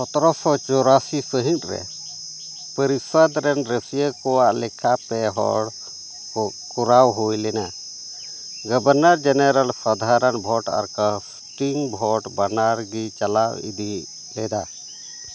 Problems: constant background noise